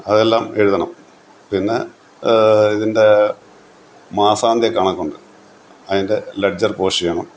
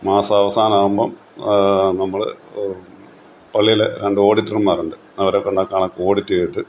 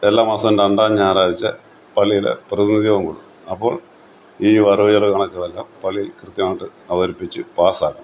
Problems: none marked